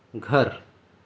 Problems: constant background noise, low volume